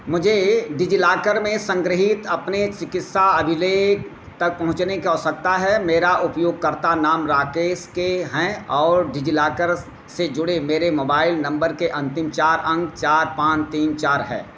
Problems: none marked